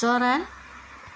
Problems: constant background noise